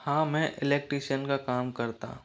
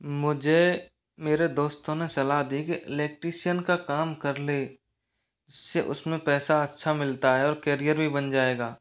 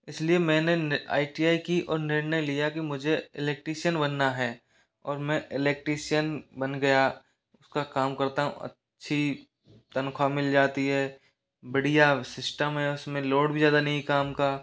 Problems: background sounds at intervals